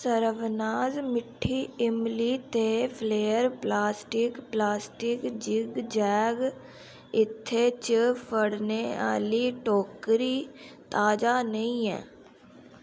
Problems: background sounds at intervals